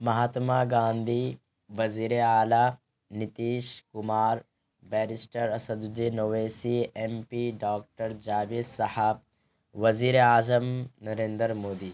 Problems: constant background noise